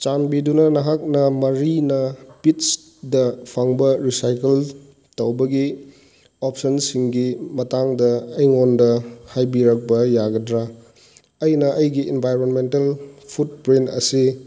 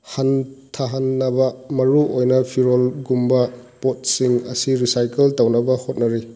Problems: background sounds at intervals